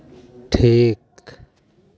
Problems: background conversations at intervals